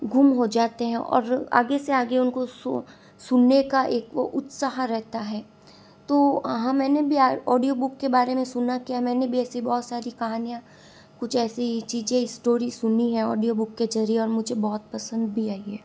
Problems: constant background noise